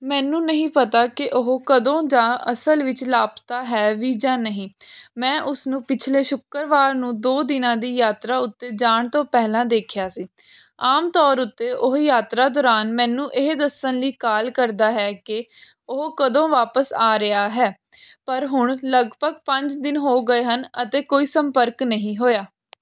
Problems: none marked